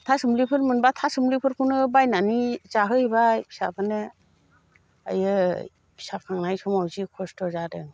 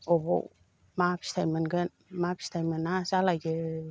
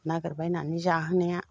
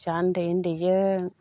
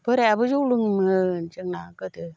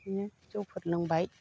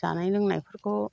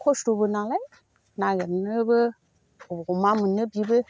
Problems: none marked